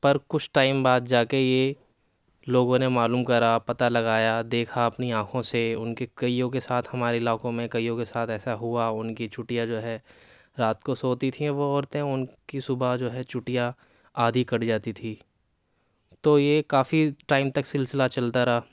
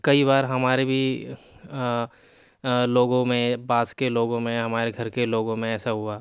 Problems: none marked